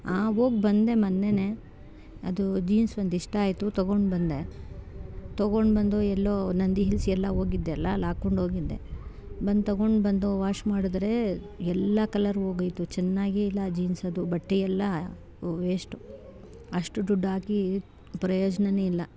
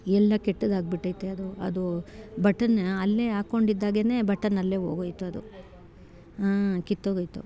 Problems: none marked